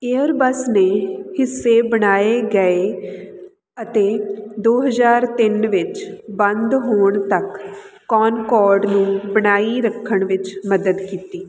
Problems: none marked